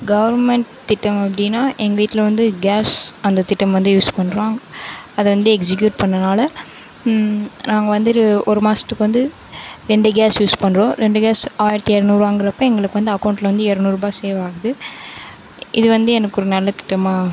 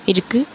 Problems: none marked